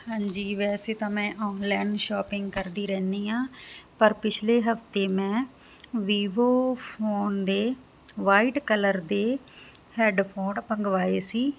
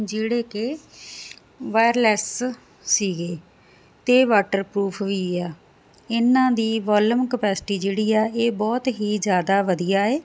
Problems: constant background noise